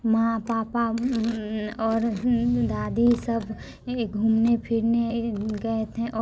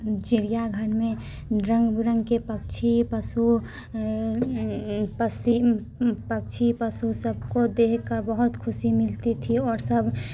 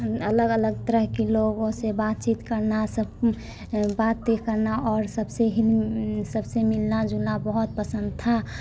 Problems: background sounds at intervals